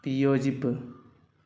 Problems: none marked